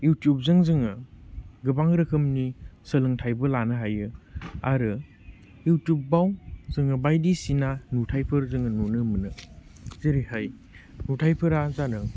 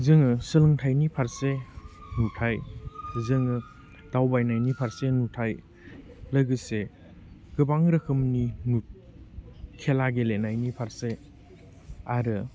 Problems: none marked